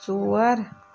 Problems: constant background noise